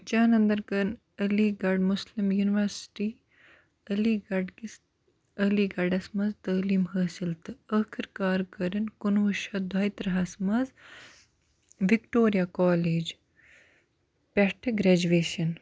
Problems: background sounds at intervals